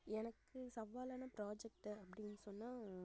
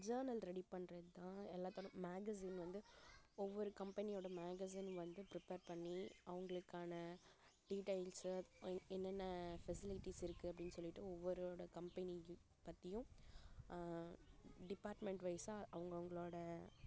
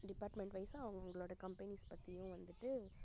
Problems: background sounds at intervals, low volume